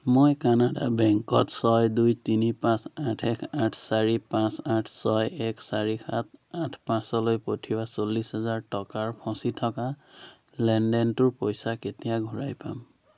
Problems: constant background noise